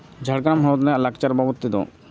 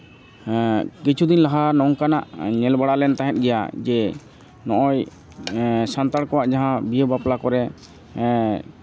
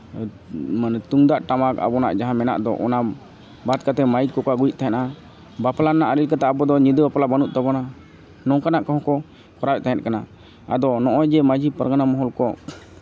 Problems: background sounds at intervals